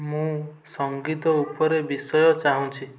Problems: background conversations at intervals